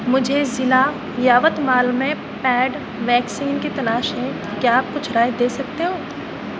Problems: constant background noise, low volume